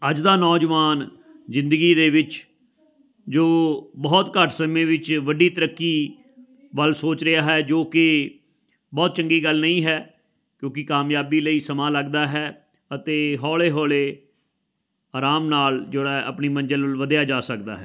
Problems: constant background noise, continuous background conversations